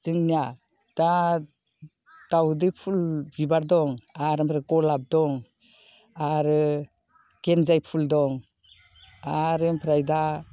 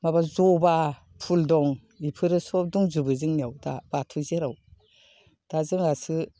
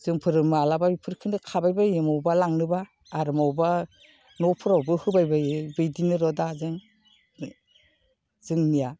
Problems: none marked